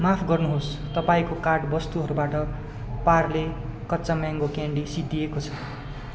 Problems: constant background noise